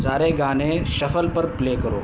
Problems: constant background noise